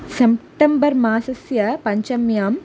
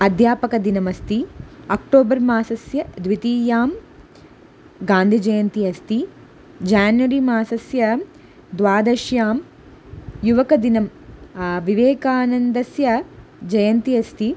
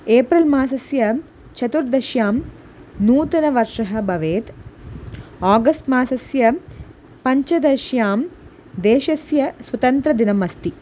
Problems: none marked